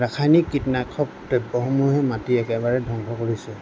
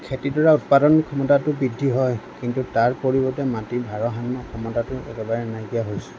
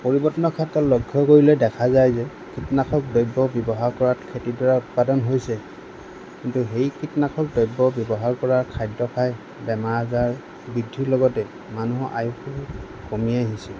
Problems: constant background noise